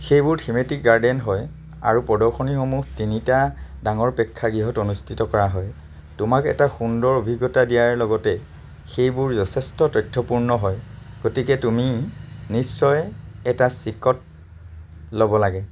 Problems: none marked